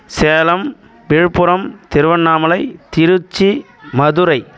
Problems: background sounds at intervals